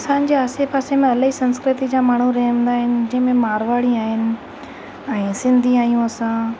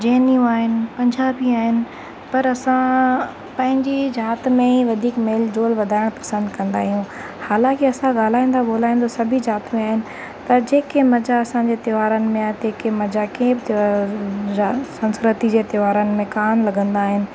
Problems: constant background noise, echo